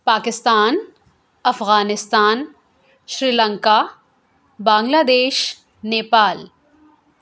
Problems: none marked